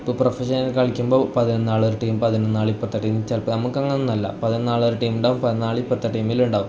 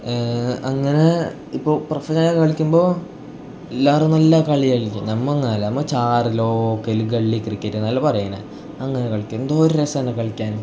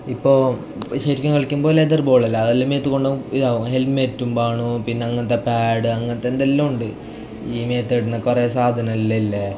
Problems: none marked